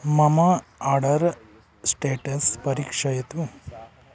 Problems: background sounds at intervals